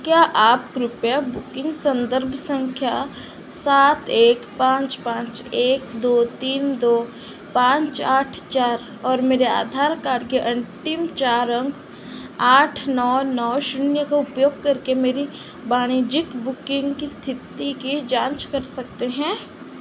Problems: constant background noise